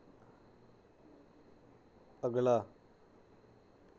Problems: constant background noise